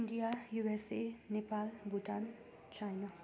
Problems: none marked